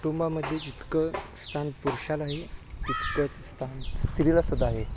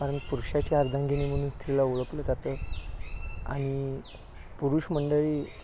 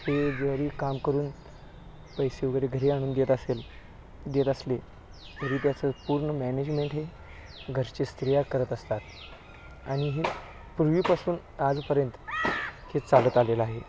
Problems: low volume